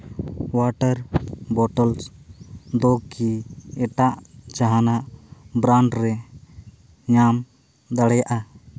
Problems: none marked